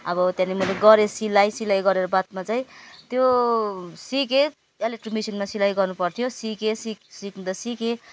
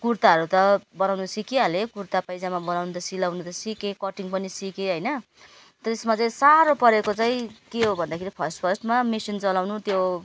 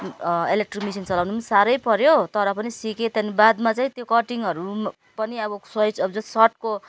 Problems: none marked